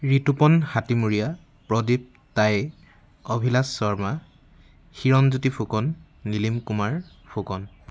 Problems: constant background noise